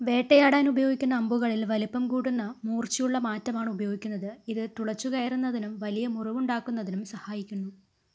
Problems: low volume